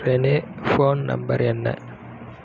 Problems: background sounds at intervals